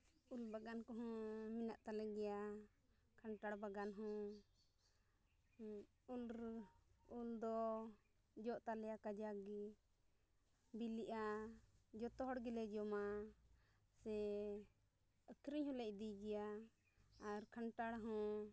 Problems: low volume